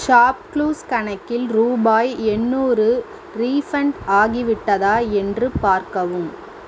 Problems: constant background noise